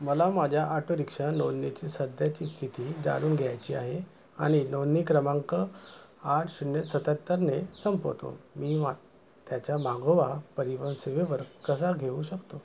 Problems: none marked